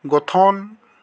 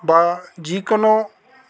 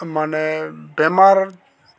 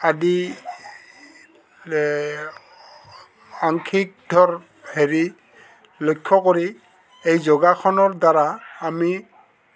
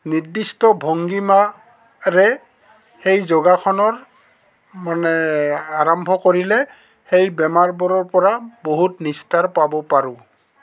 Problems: constant background noise, background conversations at intervals